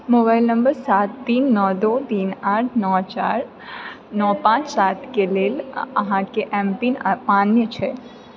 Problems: background conversations at intervals